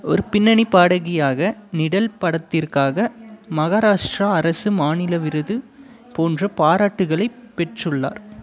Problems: continuous background conversations